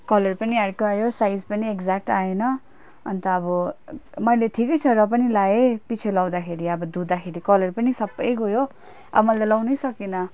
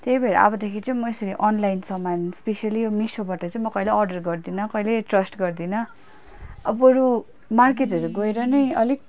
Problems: background sounds at intervals